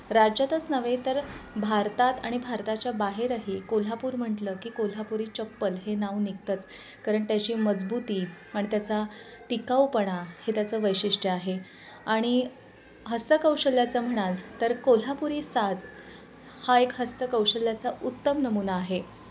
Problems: constant background noise, continuous background conversations